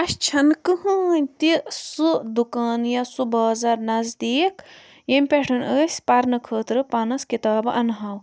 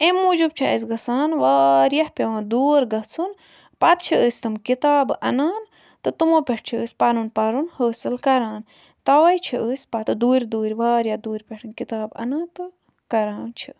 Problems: none marked